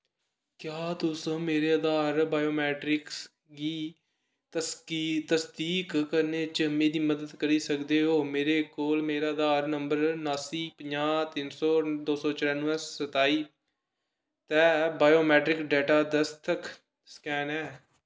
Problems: echo